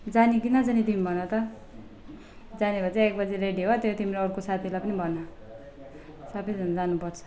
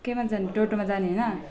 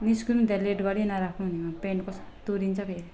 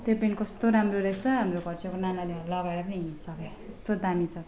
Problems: none marked